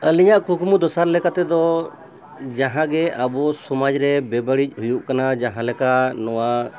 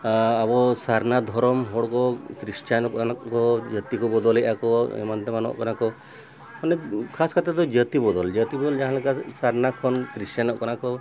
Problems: background sounds at intervals, background conversations at intervals